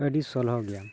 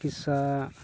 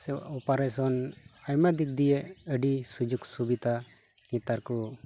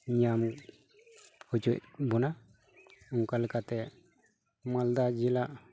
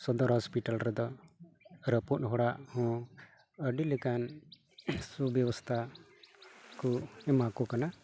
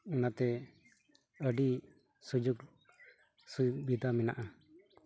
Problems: none marked